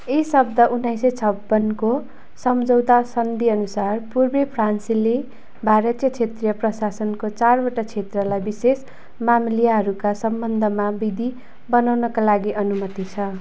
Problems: constant background noise